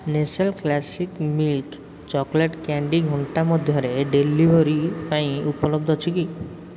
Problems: none marked